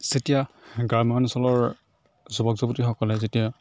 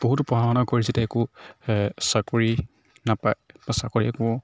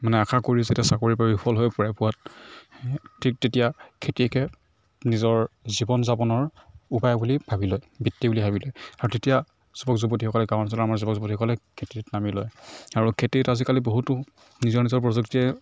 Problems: background sounds at intervals